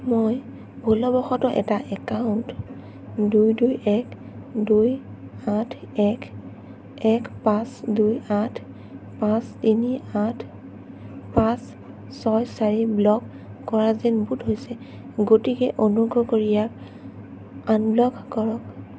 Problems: constant background noise